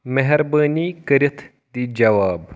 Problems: none marked